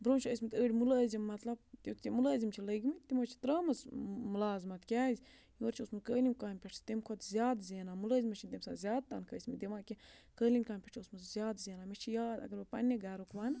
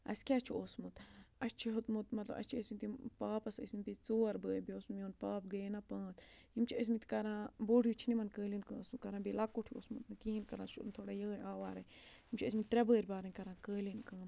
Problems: low volume